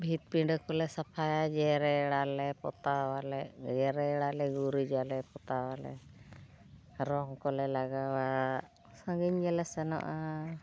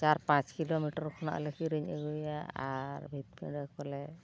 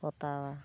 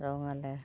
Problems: constant background noise